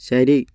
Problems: none marked